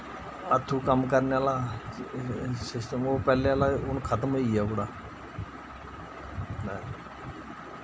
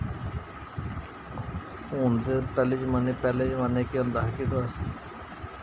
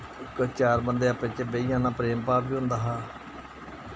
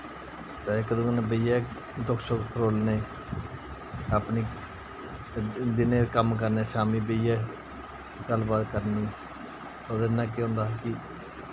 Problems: constant background noise